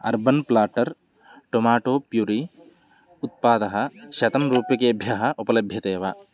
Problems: none marked